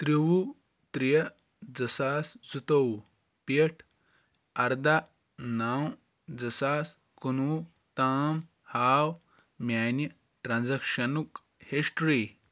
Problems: background sounds at intervals